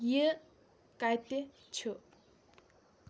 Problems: none marked